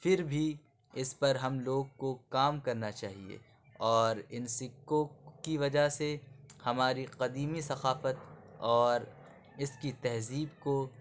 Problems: background sounds at intervals